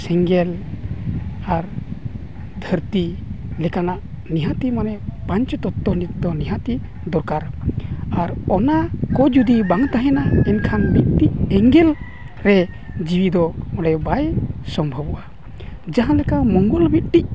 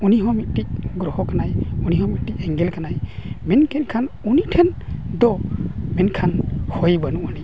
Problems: constant background noise